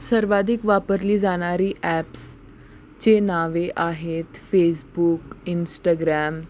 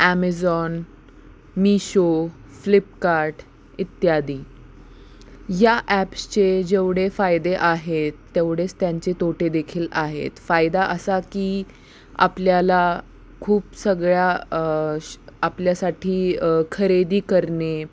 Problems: constant background noise, continuous background conversations